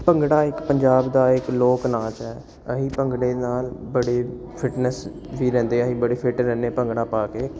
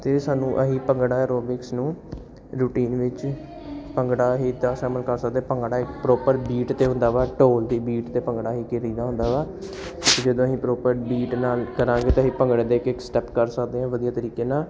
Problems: none marked